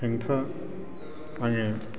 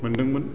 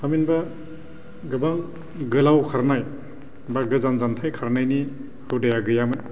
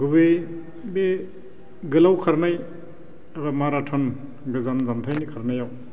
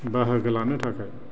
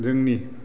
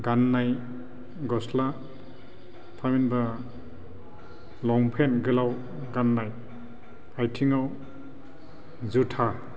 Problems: low volume